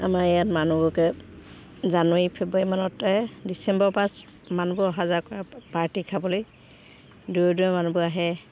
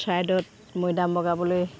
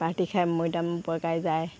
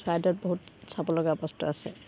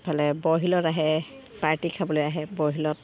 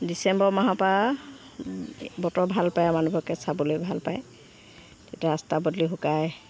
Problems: background sounds at intervals